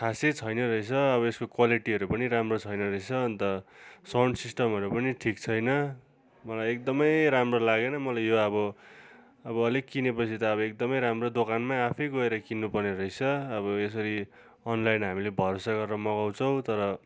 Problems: continuous background conversations